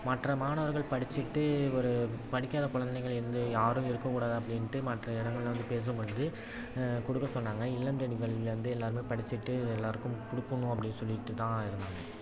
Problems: constant background noise, background conversations at intervals